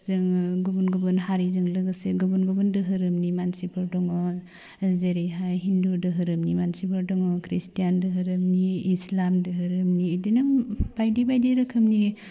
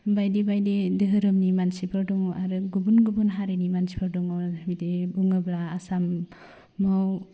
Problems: low volume